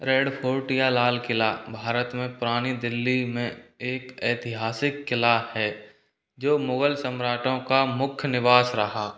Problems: none marked